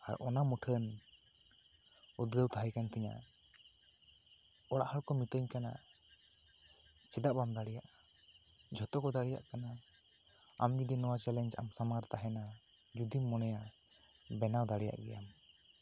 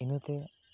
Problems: constant background noise